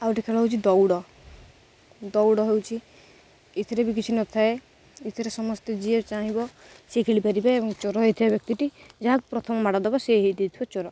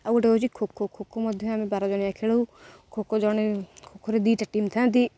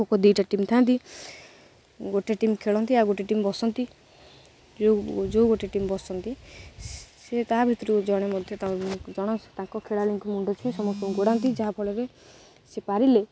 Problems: none marked